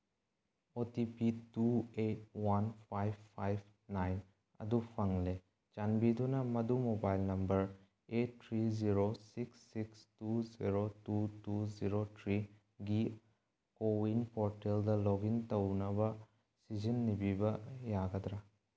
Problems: background sounds at intervals